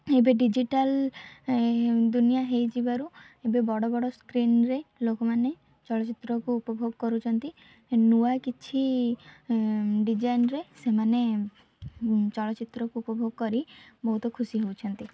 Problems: none marked